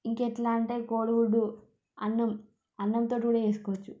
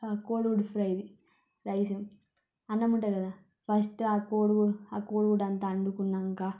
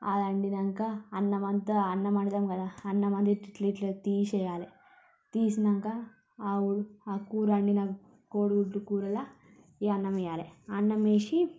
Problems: low volume